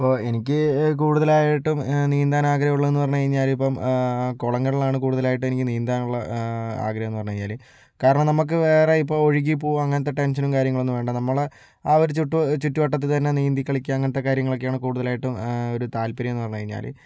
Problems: low volume